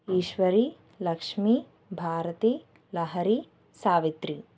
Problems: none marked